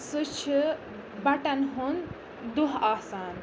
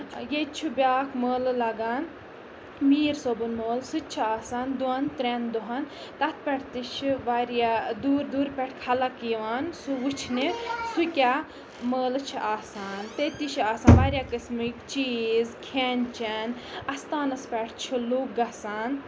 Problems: background sounds at intervals, background conversations at intervals